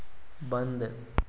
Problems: constant background noise